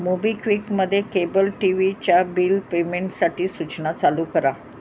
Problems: none marked